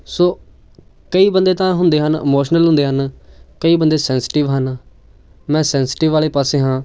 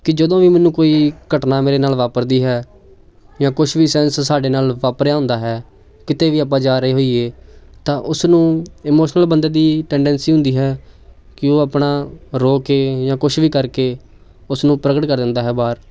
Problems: none marked